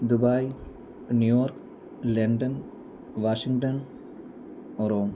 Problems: low volume